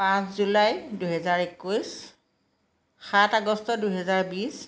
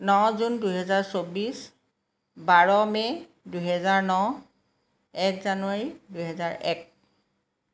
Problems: background sounds at intervals